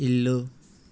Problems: constant background noise